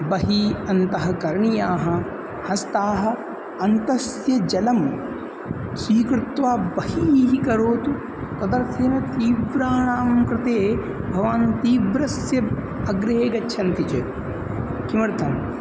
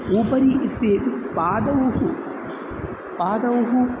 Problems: constant background noise